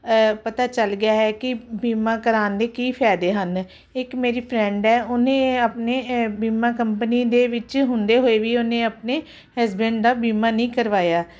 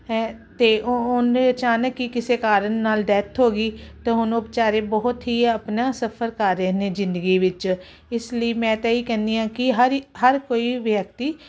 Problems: none marked